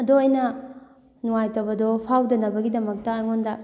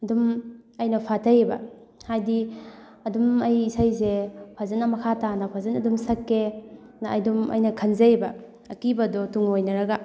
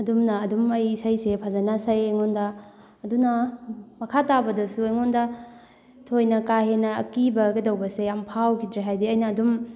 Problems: background conversations at intervals